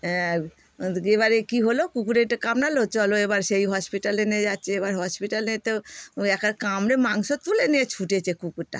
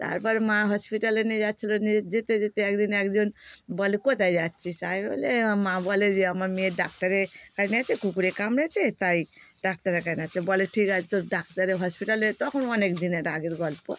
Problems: none marked